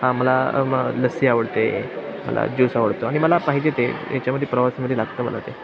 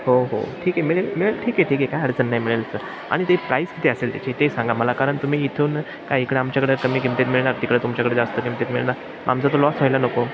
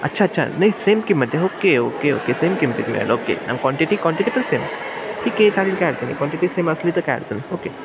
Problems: constant background noise